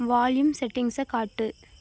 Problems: constant background noise